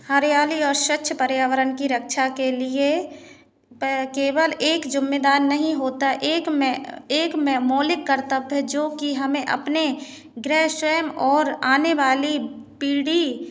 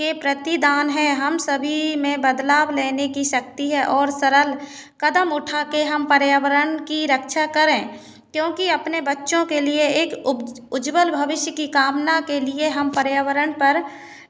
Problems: constant background noise